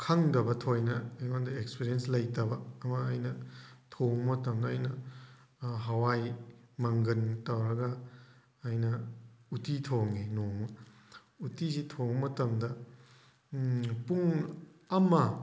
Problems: background sounds at intervals